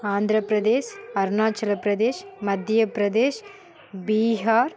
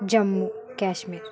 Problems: continuous background conversations